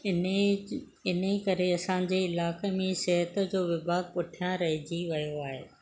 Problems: background sounds at intervals